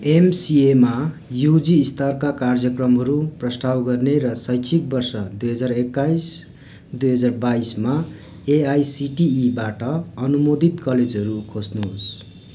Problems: background sounds at intervals